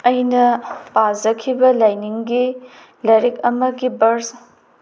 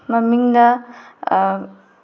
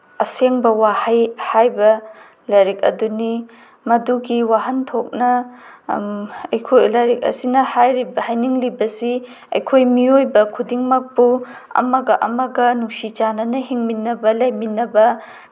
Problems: none marked